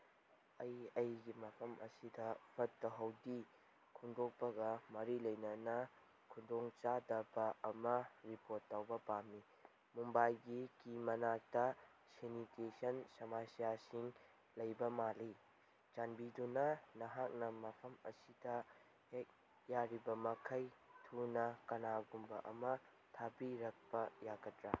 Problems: background sounds at intervals